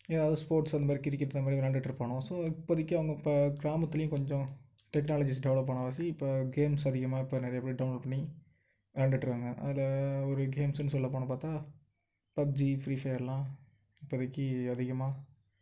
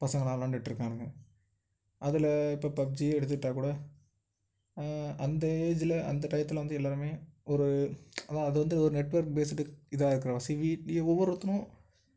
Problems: none marked